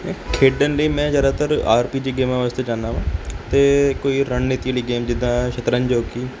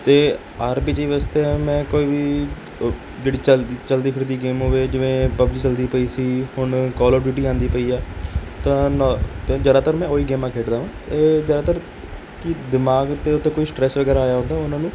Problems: background sounds at intervals